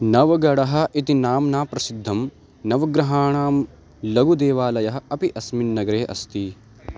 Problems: constant background noise